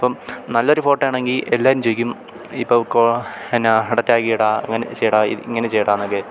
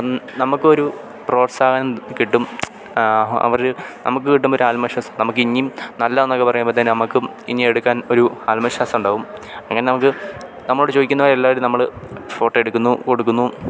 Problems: constant background noise